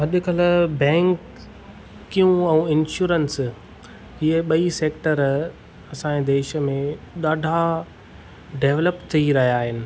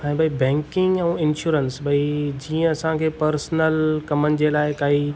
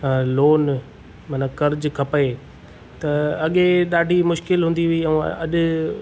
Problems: background sounds at intervals